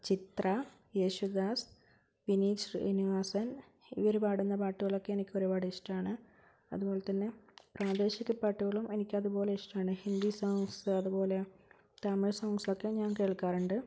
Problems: low volume